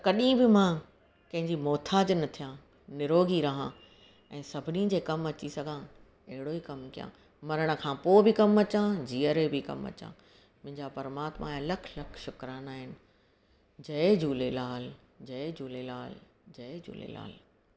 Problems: none marked